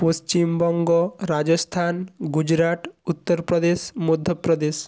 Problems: constant background noise